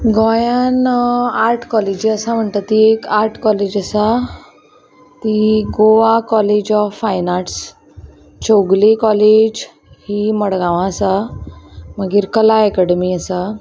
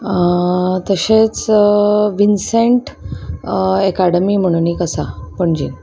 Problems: constant background noise, background conversations at intervals